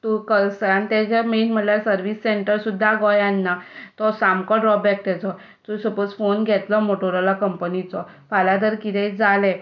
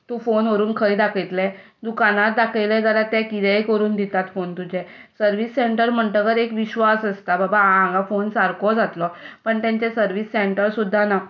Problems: none marked